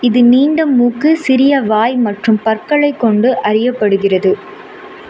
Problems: constant background noise